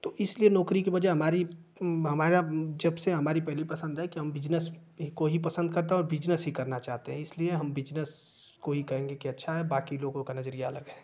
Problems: constant background noise